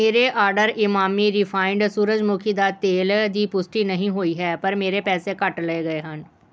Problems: background sounds at intervals